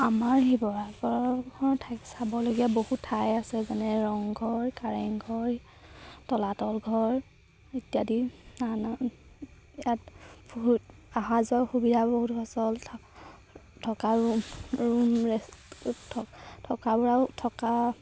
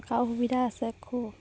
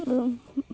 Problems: constant background noise